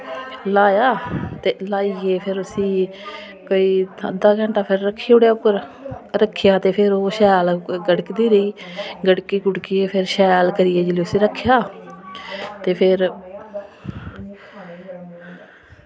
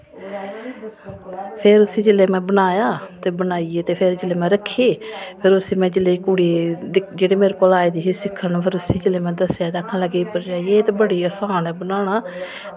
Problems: none marked